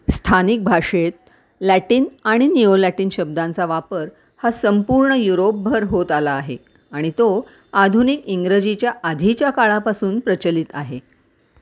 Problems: none marked